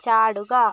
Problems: none marked